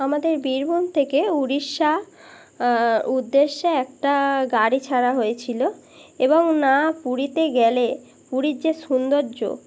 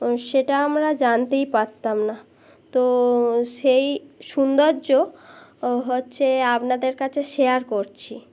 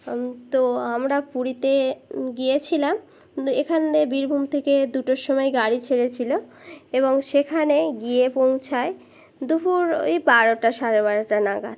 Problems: constant background noise